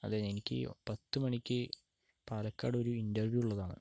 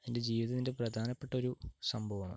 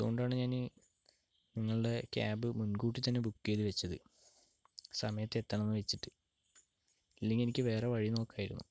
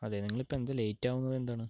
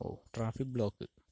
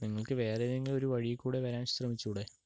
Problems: low volume